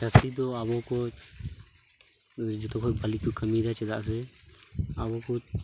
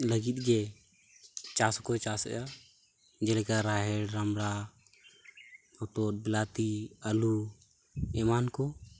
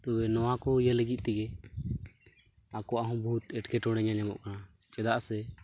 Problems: none marked